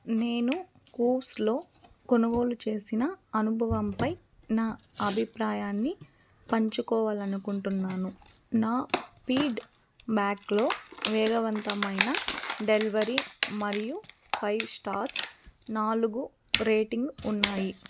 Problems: background sounds at intervals